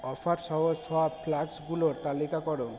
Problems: constant background noise